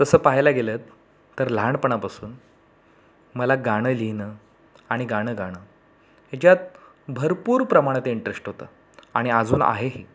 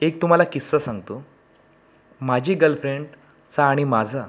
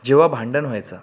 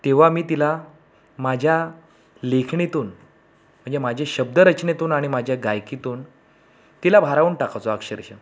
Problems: background sounds at intervals